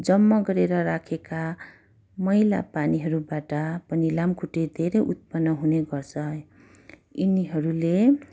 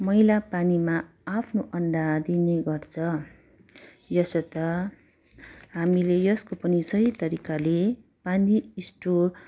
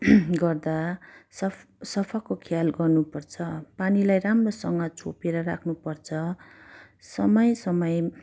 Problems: none marked